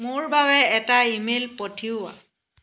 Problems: background sounds at intervals